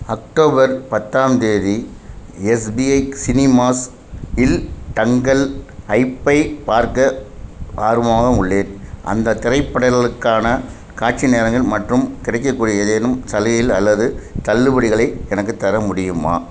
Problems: constant background noise